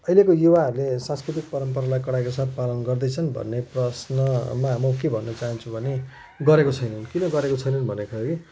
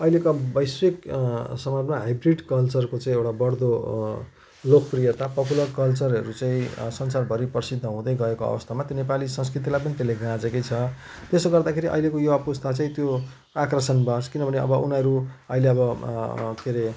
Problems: constant background noise